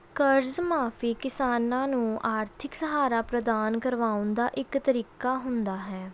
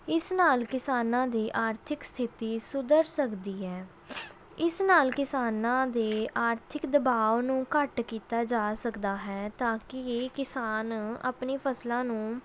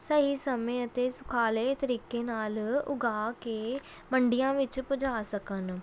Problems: background sounds at intervals